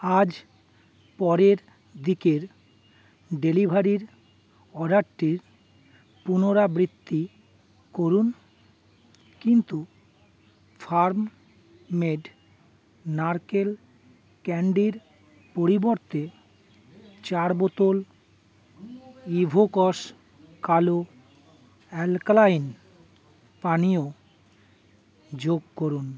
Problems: constant background noise